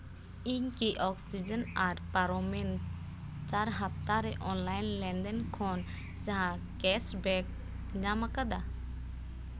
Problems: none marked